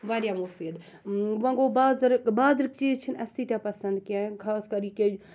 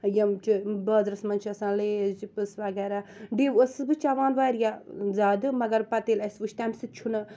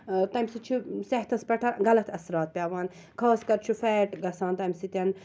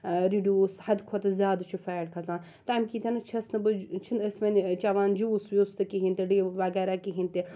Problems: background sounds at intervals